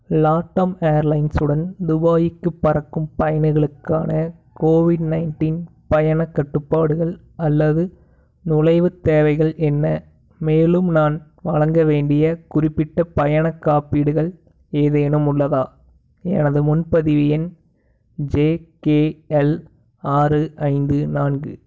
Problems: background sounds at intervals